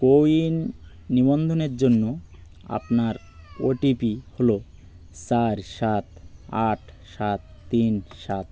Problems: none marked